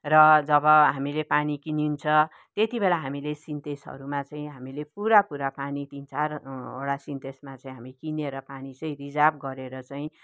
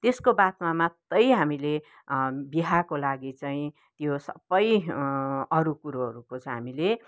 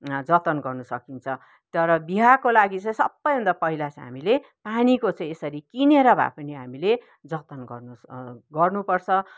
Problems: background conversations at intervals